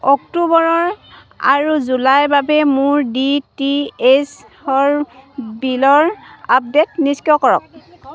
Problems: constant background noise, continuous background conversations